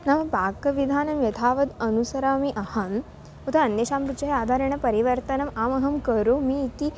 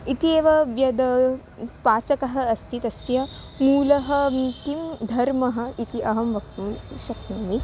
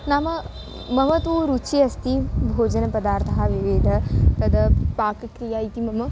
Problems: background sounds at intervals